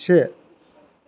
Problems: none marked